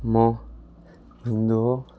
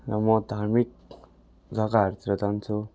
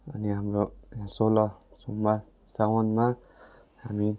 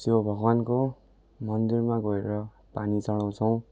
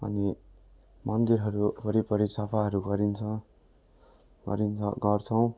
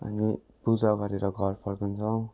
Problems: none marked